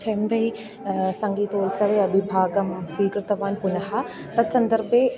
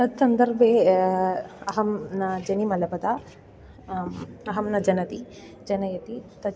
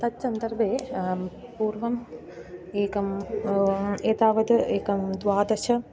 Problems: none marked